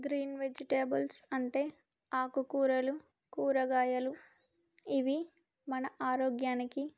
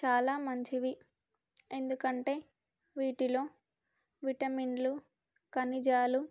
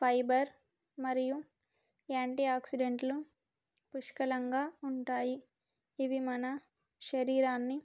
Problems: none marked